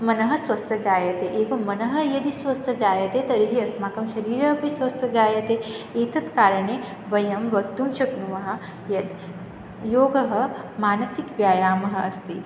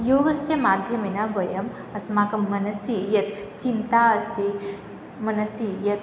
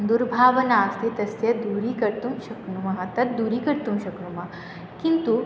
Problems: none marked